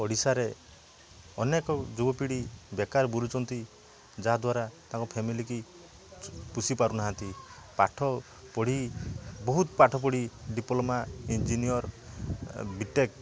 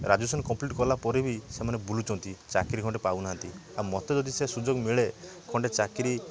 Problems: background sounds at intervals, background conversations at intervals